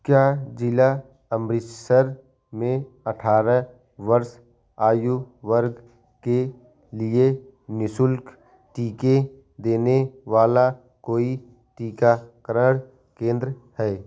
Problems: none marked